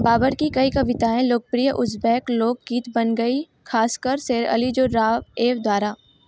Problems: constant background noise